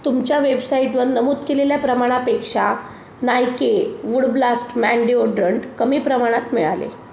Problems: constant background noise